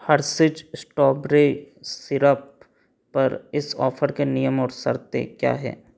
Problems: background sounds at intervals